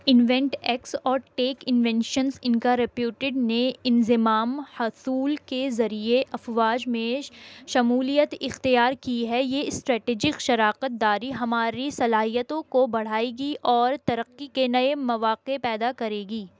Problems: constant background noise